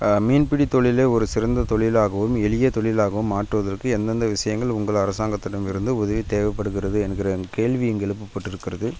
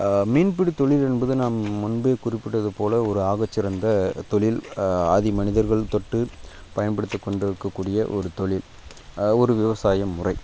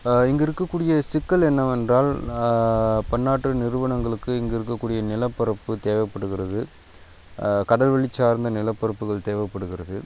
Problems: background sounds at intervals